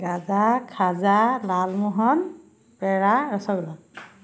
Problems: none marked